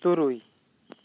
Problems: constant background noise